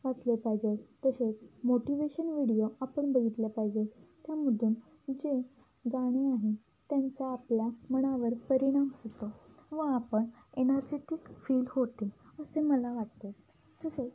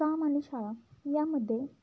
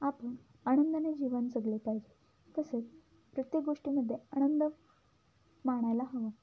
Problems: low volume